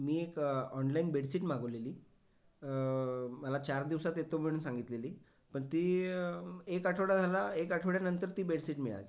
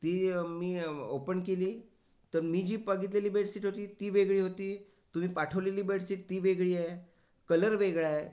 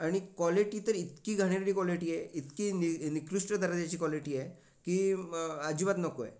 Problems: none marked